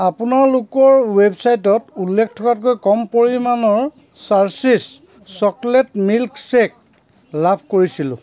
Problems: constant background noise, background conversations at intervals